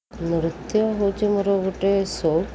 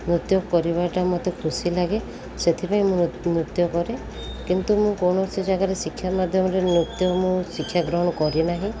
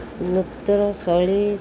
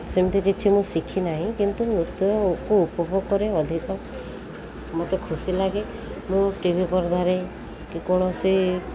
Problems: constant background noise